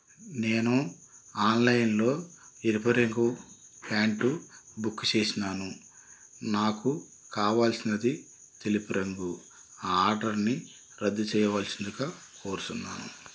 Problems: constant background noise